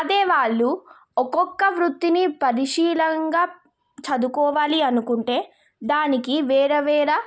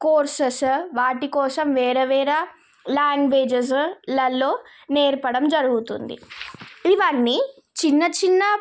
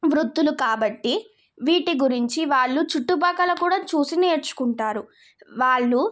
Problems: none marked